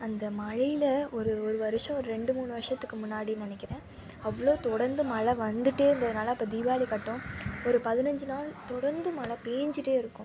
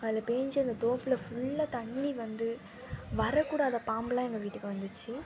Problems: constant background noise